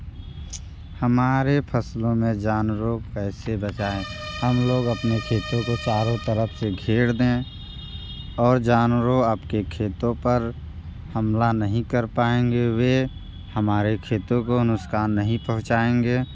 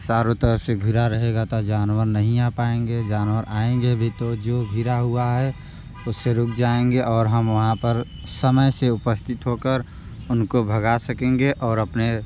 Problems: constant background noise